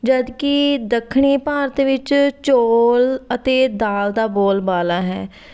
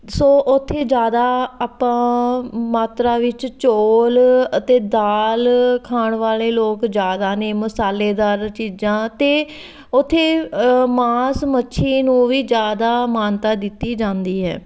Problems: background sounds at intervals